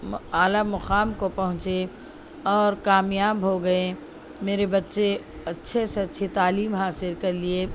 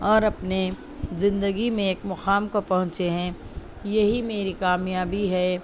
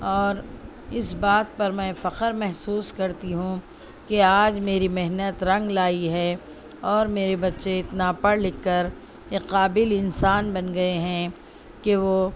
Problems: none marked